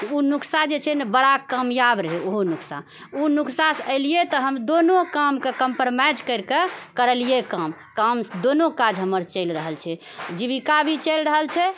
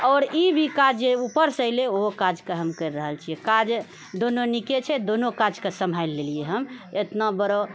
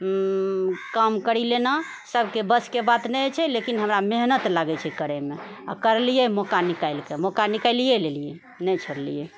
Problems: none marked